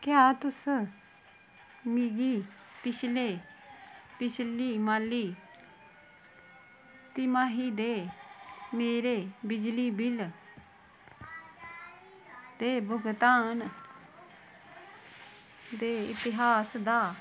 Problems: constant background noise